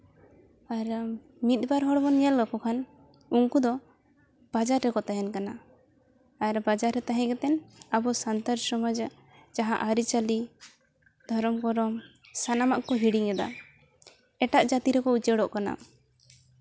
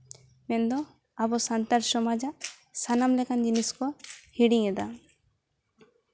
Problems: background sounds at intervals